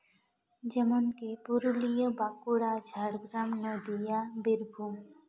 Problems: background sounds at intervals, echo